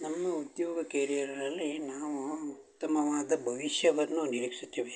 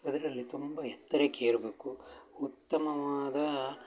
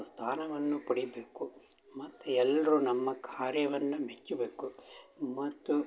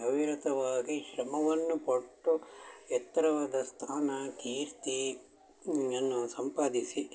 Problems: background sounds at intervals, background conversations at intervals